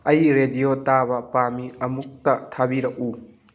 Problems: none marked